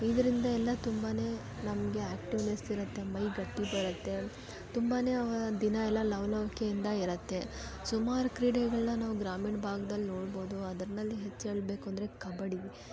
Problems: background sounds at intervals